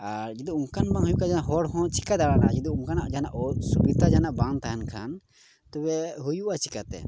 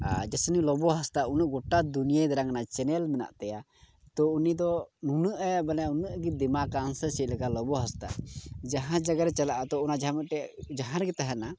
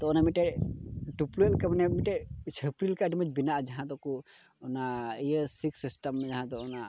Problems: background sounds at intervals